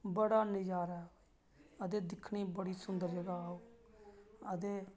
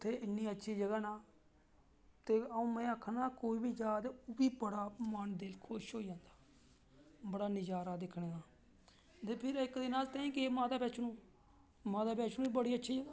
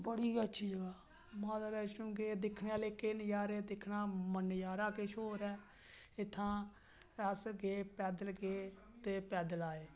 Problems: none marked